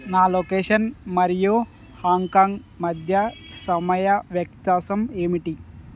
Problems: none marked